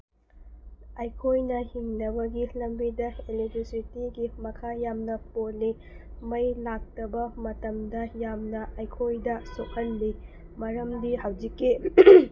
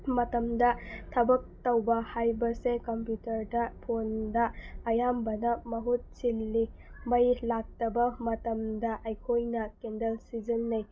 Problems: background sounds at intervals